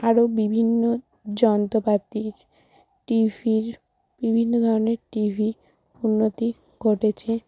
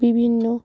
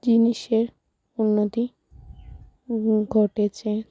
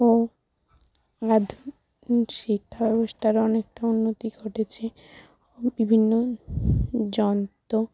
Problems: none marked